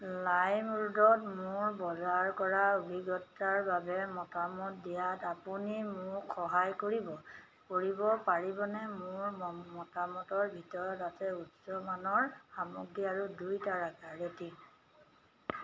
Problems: none marked